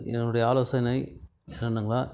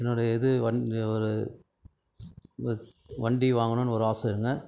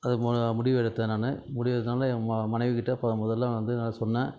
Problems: background conversations at intervals